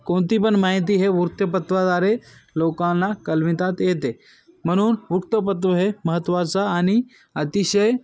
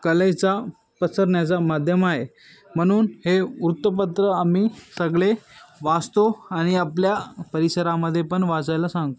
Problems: none marked